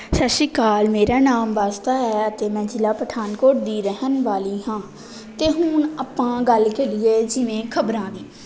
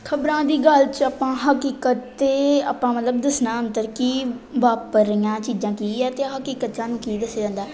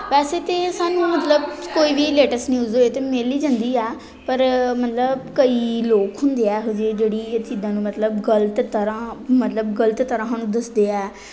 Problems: background conversations at intervals